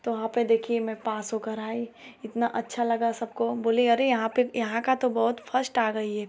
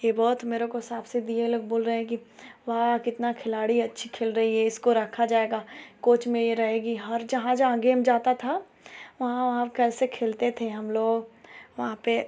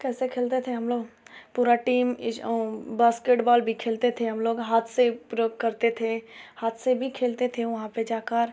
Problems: constant background noise